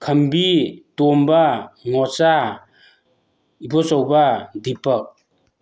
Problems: background sounds at intervals